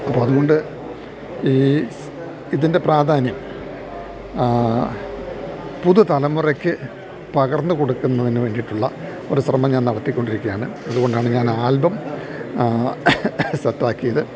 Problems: background sounds at intervals